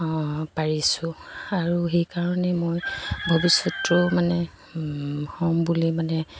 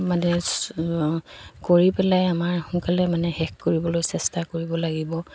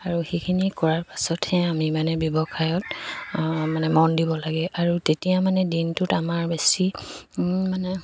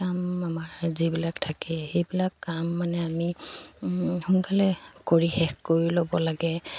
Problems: background sounds at intervals, background conversations at intervals